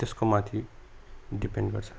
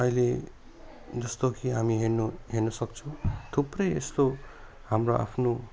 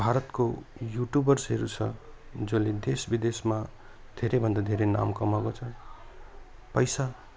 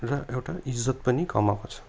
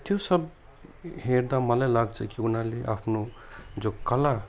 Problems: none marked